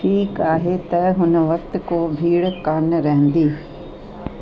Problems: constant background noise, echo